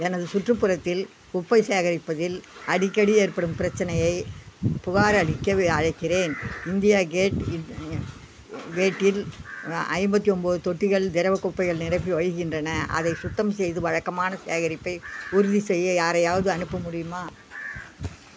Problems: constant background noise